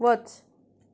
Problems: none marked